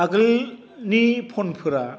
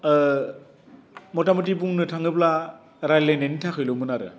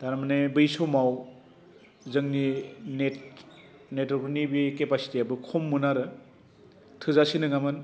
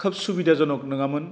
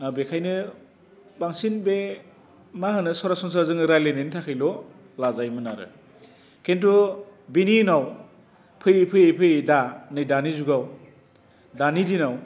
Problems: constant background noise